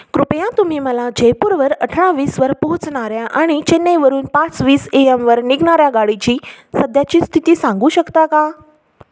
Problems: constant background noise